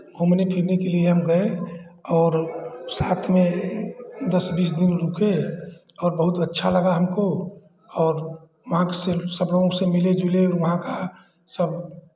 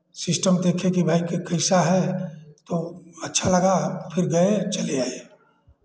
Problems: constant background noise, background conversations at intervals